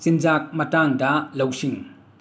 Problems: constant background noise